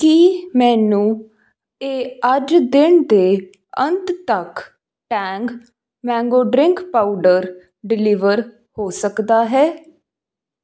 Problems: none marked